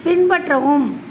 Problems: constant background noise